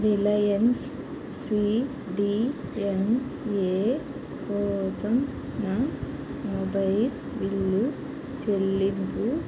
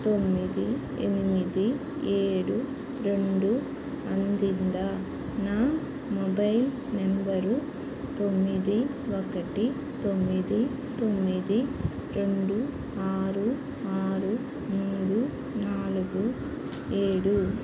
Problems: constant background noise